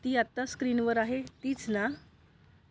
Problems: background sounds at intervals